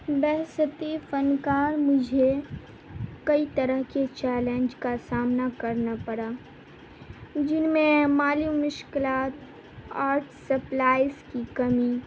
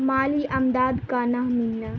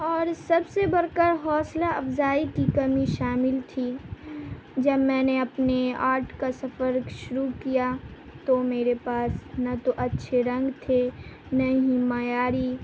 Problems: constant background noise